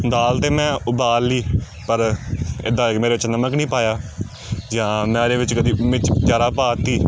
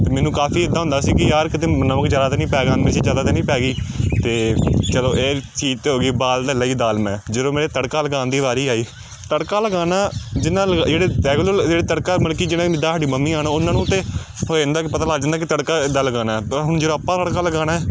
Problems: background sounds at intervals